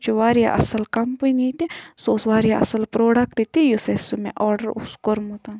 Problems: background sounds at intervals